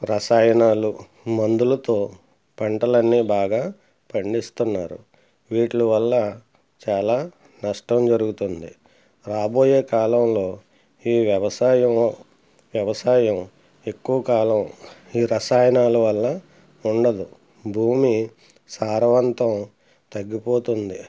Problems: none marked